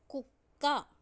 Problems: low volume